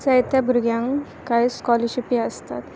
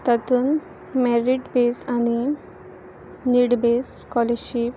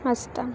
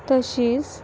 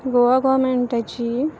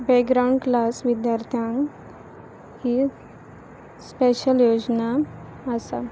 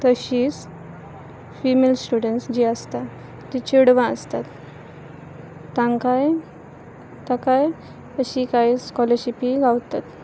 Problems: background sounds at intervals